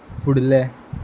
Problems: none marked